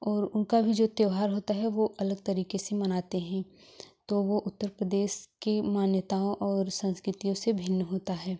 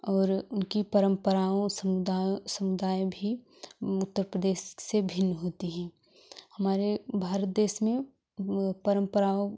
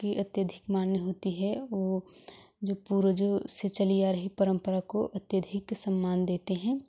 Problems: none marked